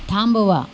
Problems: background sounds at intervals